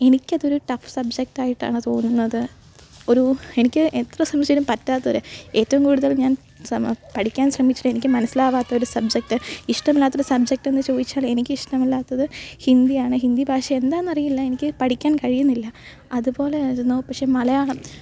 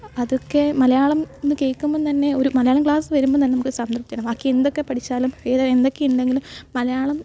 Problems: background sounds at intervals